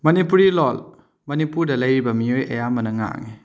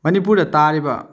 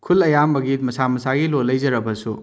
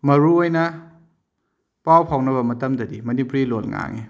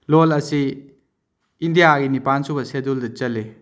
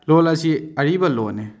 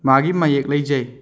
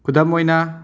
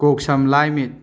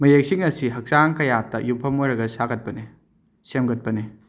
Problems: background sounds at intervals